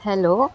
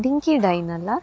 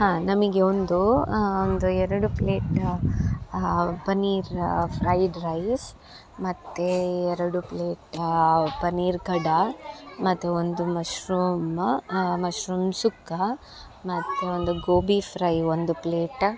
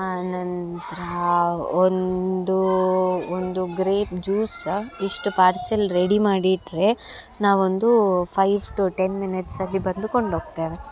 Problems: background sounds at intervals